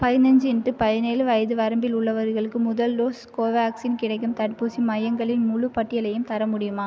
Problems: none marked